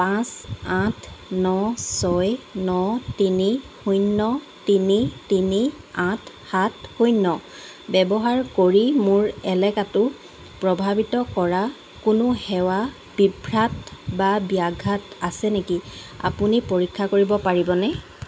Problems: constant background noise